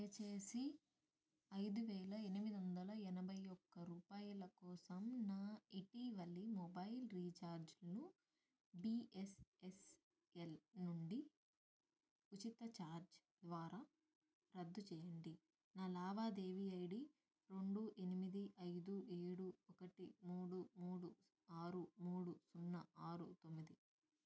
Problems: low volume